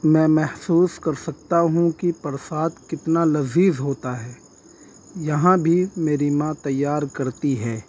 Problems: constant background noise